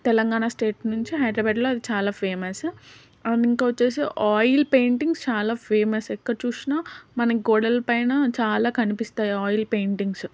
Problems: none marked